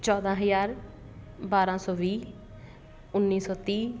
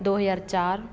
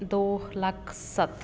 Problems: constant background noise